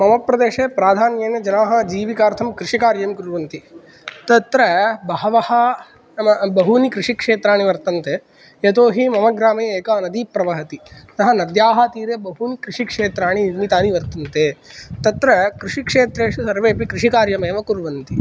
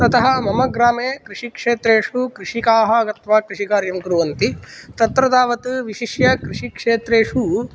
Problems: none marked